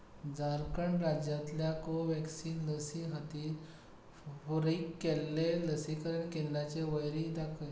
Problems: none marked